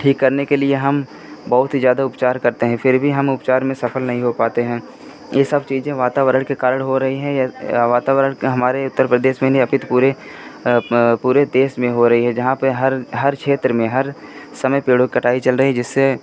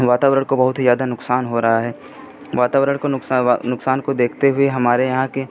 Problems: constant background noise